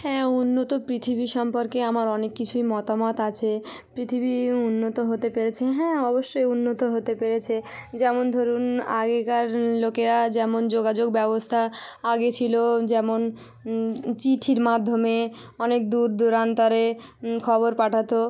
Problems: none marked